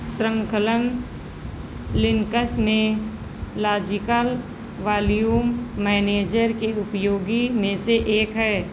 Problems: constant background noise